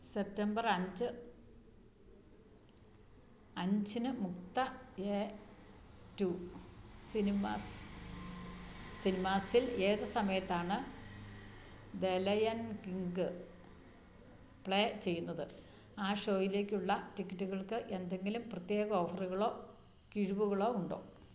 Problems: none marked